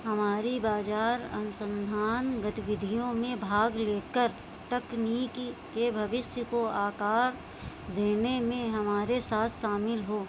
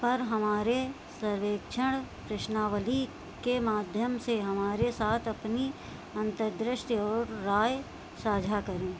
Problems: constant background noise